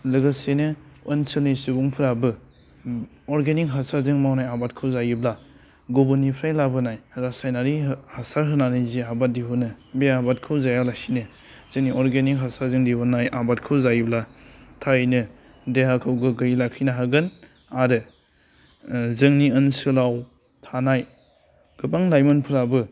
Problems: low volume